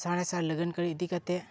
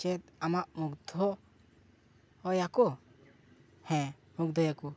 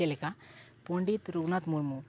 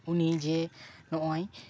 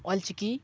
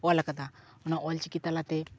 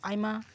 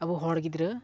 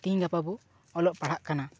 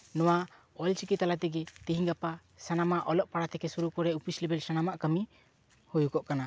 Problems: background sounds at intervals, background conversations at intervals